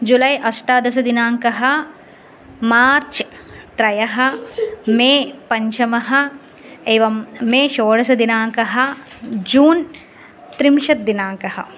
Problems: none marked